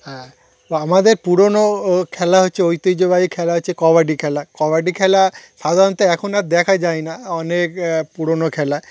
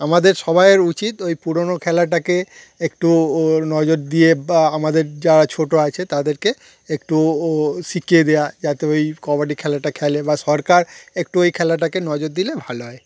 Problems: constant background noise